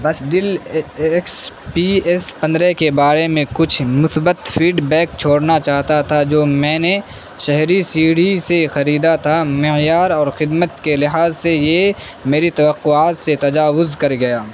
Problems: constant background noise